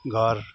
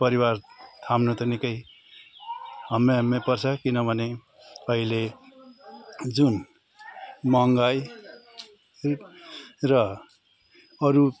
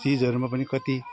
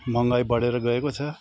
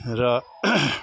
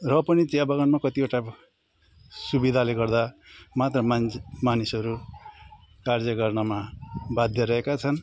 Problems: constant background noise